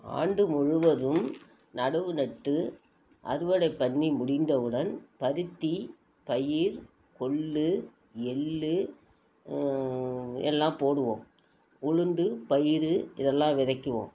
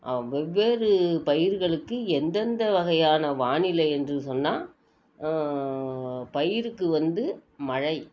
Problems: none marked